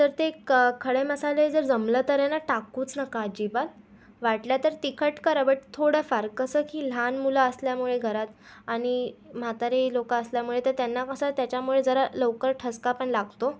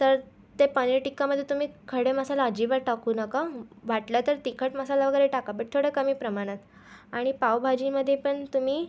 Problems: constant background noise